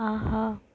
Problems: none marked